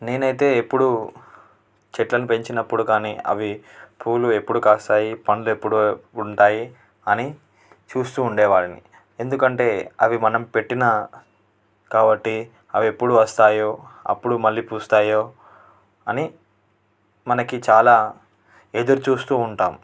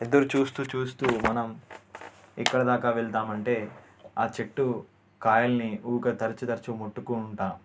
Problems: constant background noise